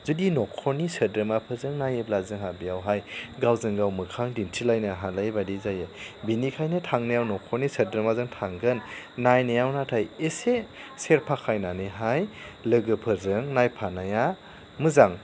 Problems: none marked